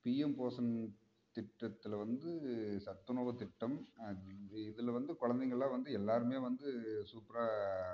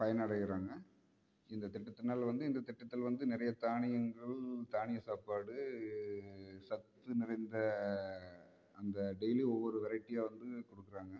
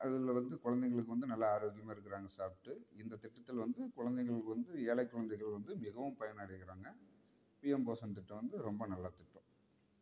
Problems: background sounds at intervals